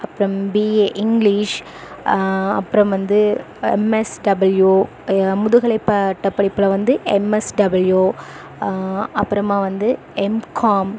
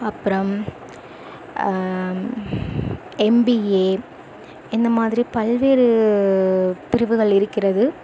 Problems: constant background noise